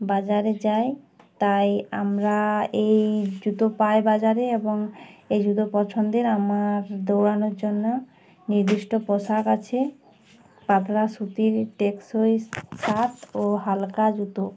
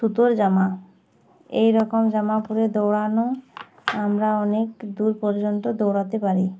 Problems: background sounds at intervals, background conversations at intervals